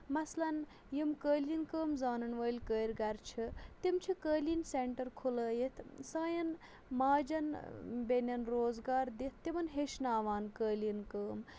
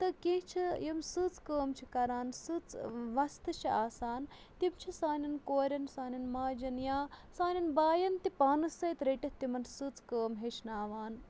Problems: none marked